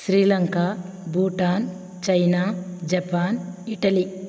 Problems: none marked